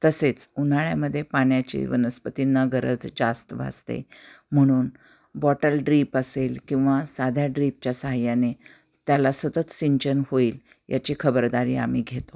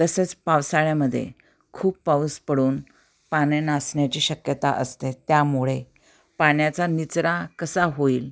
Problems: none marked